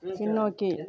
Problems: constant background noise